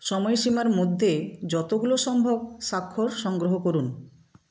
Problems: constant background noise